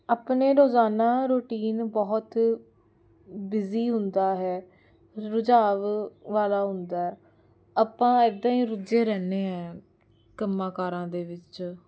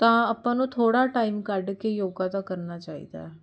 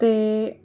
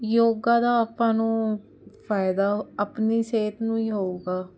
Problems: none marked